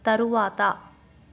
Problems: constant background noise